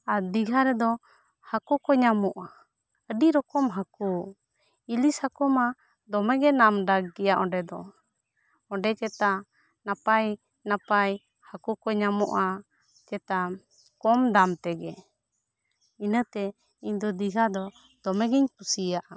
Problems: none marked